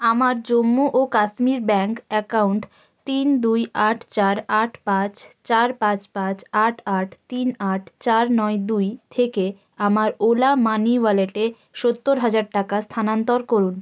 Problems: constant background noise